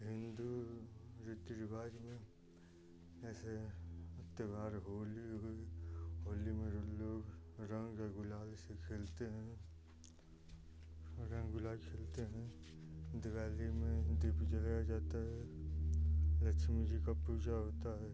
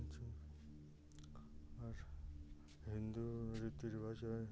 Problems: low volume